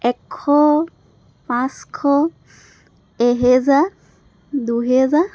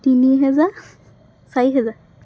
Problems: none marked